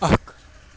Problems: constant background noise